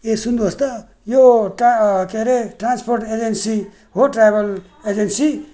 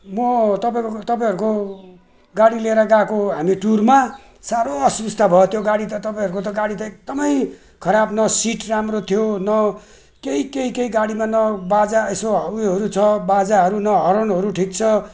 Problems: none marked